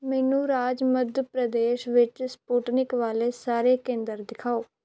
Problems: background sounds at intervals